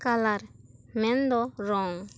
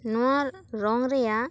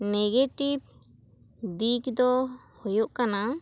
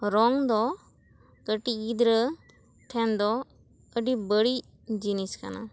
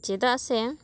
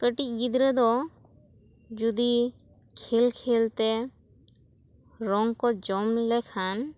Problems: none marked